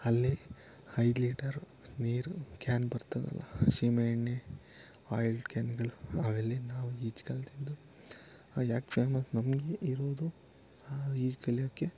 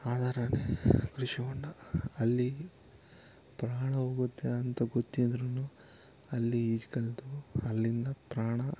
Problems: constant background noise, continuous background conversations